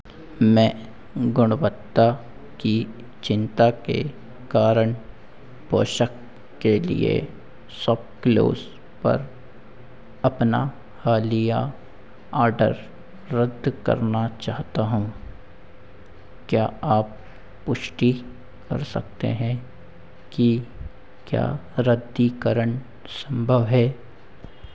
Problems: constant background noise, echo